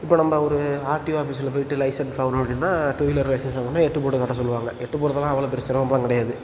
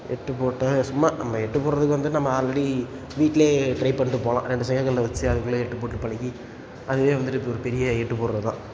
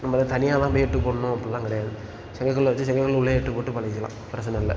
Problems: background sounds at intervals